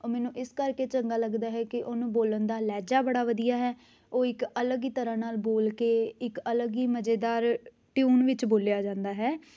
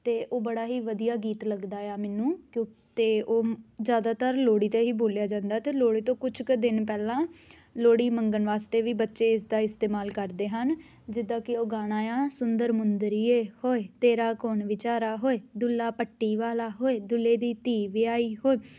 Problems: background sounds at intervals